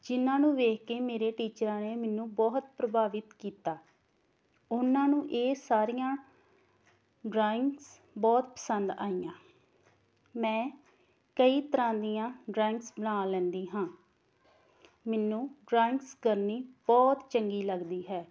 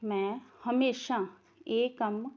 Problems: background sounds at intervals